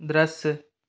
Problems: none marked